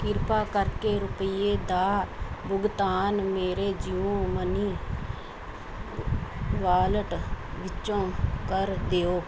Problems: none marked